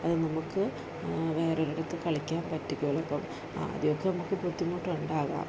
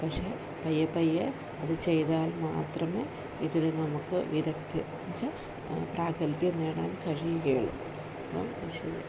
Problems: none marked